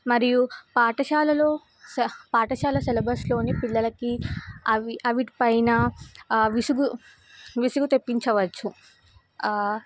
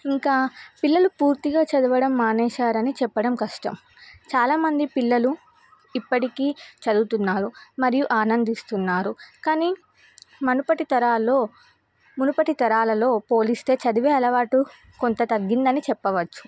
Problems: none marked